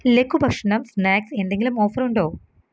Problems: none marked